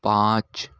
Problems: none marked